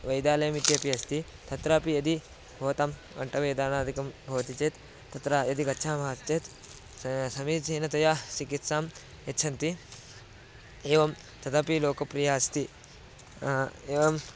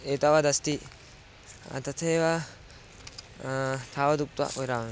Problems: constant background noise